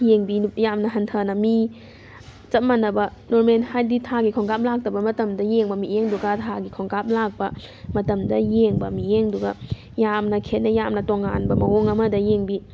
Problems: background sounds at intervals